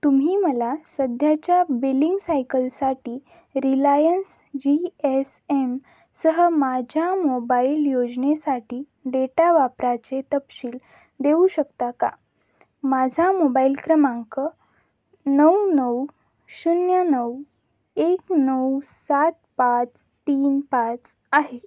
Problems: none marked